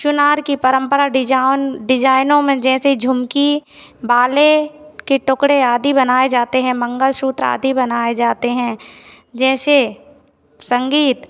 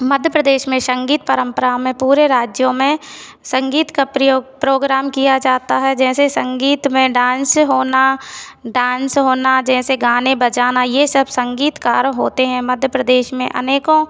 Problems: none marked